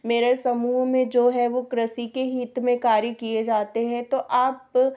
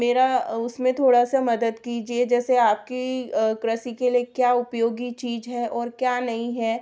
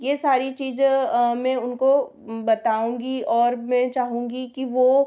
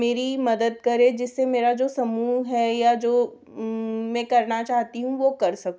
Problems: none marked